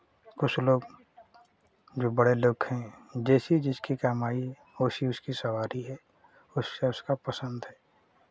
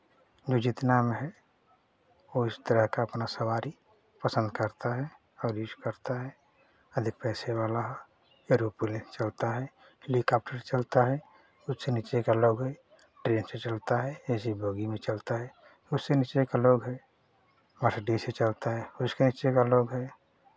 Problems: none marked